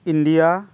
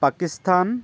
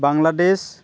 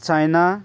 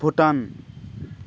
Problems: constant background noise